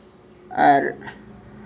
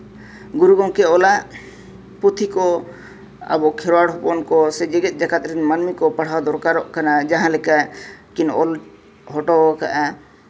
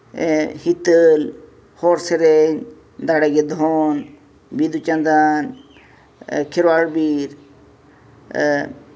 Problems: none marked